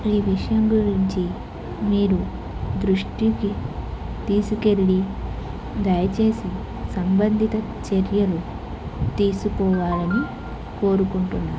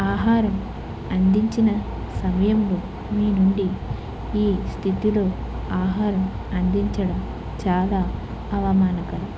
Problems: constant background noise